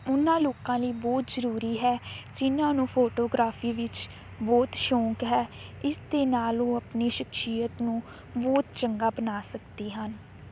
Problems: constant background noise